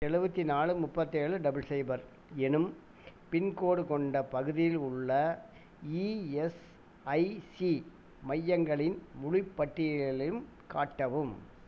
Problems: none marked